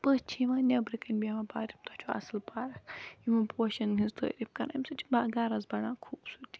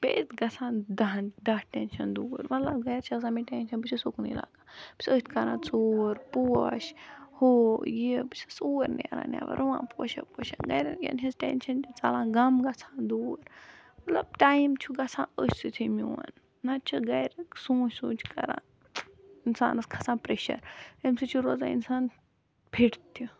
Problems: background sounds at intervals